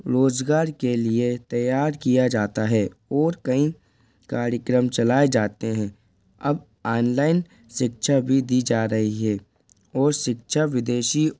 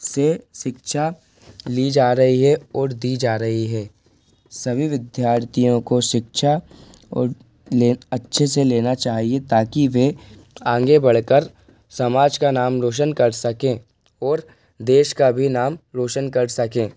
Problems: constant background noise, background conversations at intervals